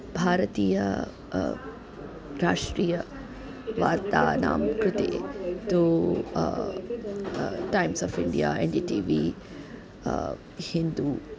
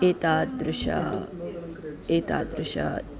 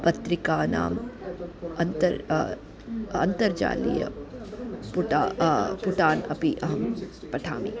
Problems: continuous background conversations